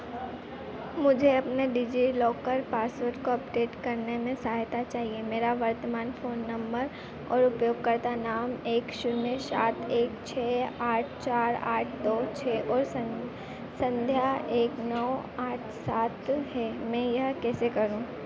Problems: constant background noise